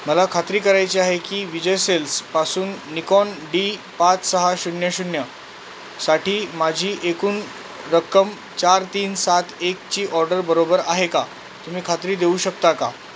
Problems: constant background noise